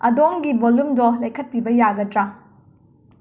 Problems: none marked